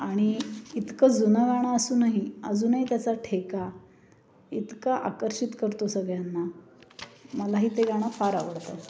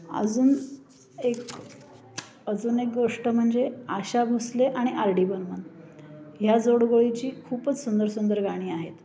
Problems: background sounds at intervals, background conversations at intervals